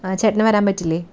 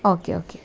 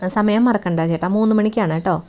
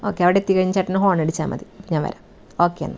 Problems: background sounds at intervals